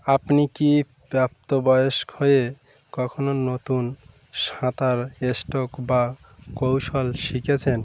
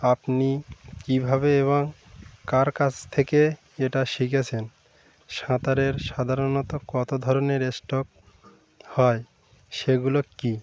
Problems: constant background noise, background conversations at intervals